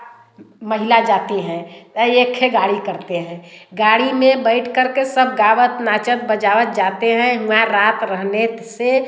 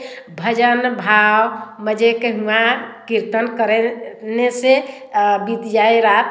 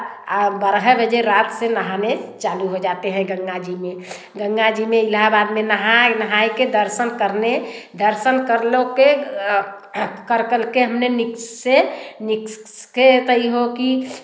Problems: constant background noise, background conversations at intervals, echo